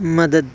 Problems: constant background noise